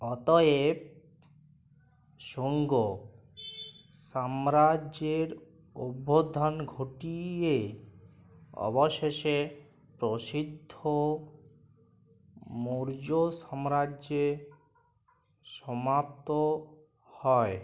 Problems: none marked